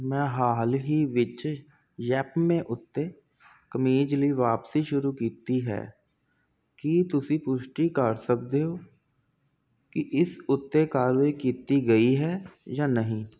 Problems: constant background noise